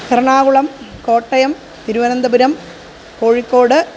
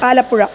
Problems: constant background noise